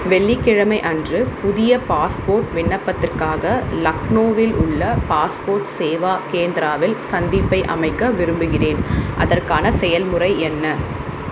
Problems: constant background noise